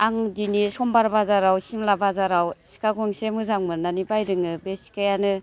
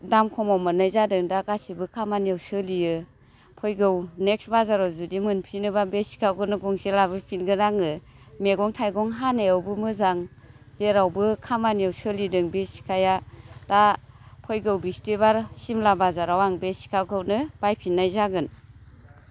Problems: none marked